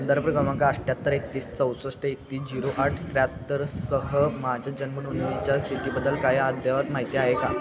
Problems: constant background noise, continuous background conversations